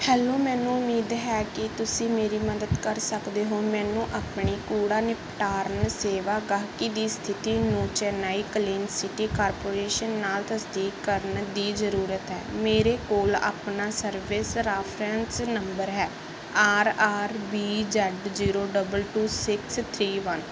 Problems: none marked